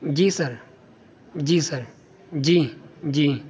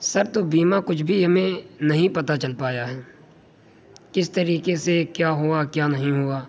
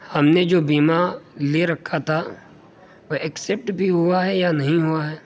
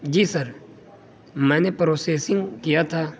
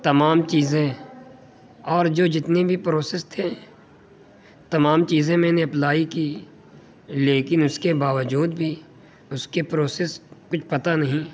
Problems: constant background noise